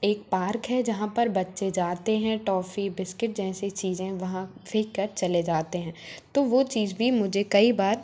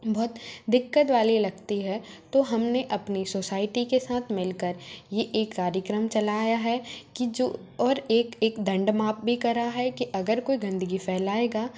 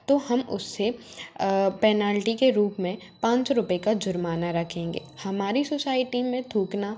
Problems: constant background noise